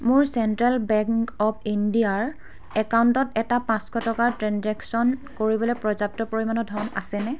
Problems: constant background noise